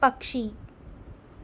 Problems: none marked